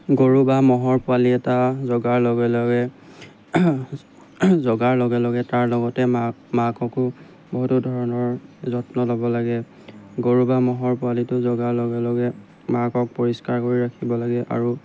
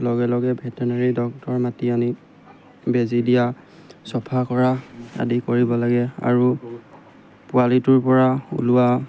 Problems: background sounds at intervals